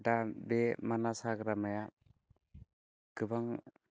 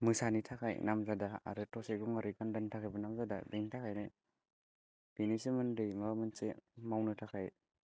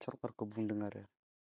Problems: constant background noise